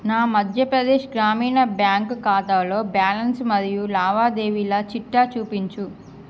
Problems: constant background noise